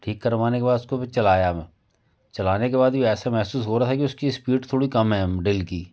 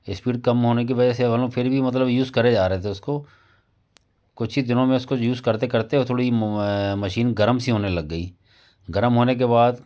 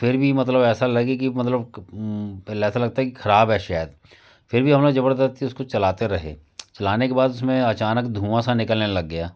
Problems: constant background noise, background conversations at intervals